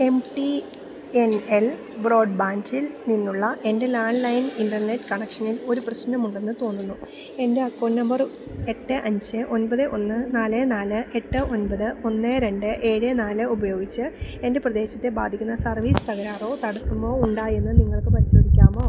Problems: background sounds at intervals